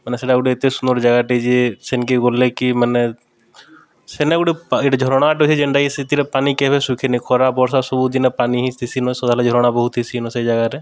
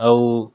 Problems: background conversations at intervals